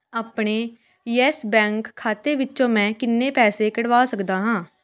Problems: background conversations at intervals